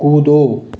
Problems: constant background noise